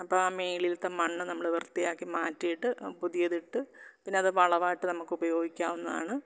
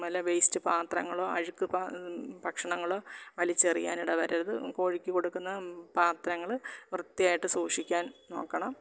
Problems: none marked